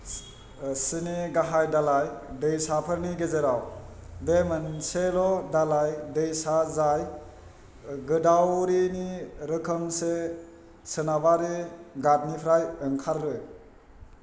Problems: low volume